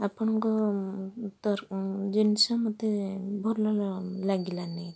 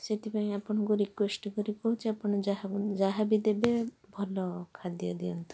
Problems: none marked